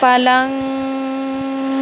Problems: constant background noise